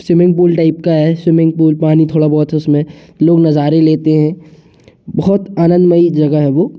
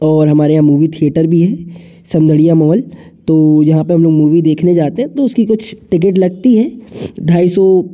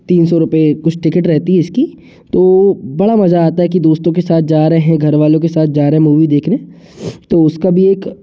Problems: constant background noise